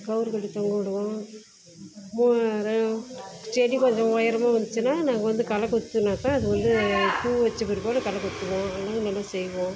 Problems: background sounds at intervals